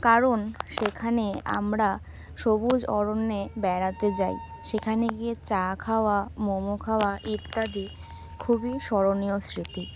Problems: background sounds at intervals